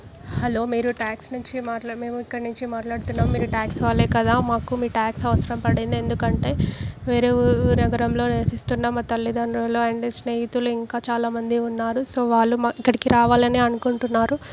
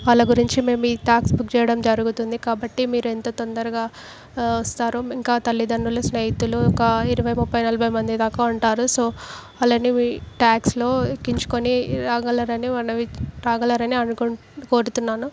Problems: background sounds at intervals